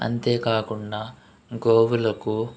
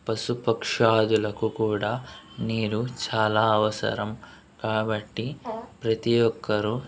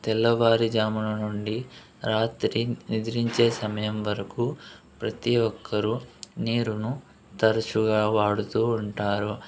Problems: constant background noise